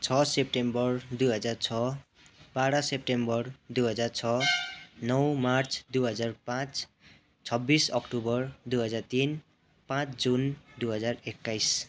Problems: continuous background conversations